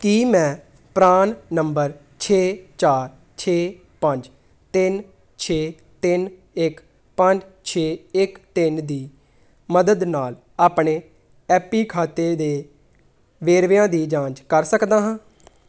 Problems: background sounds at intervals